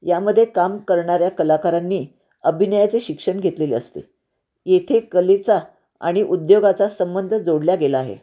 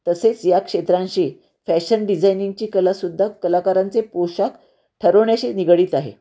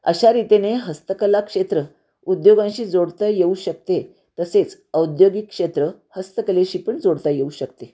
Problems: none marked